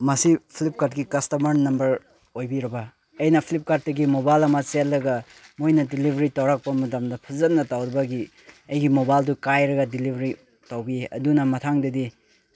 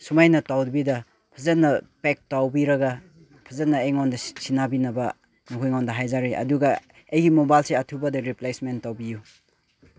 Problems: background conversations at intervals